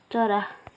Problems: continuous background conversations